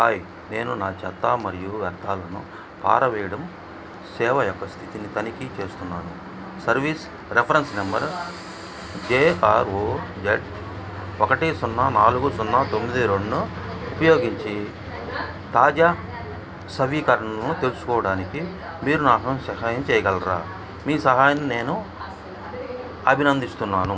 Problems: background sounds at intervals, background conversations at intervals